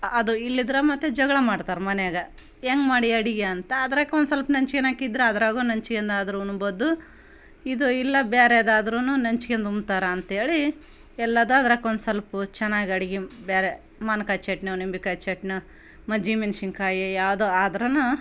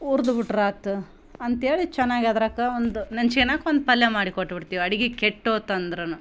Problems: none marked